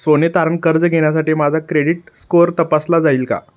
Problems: none marked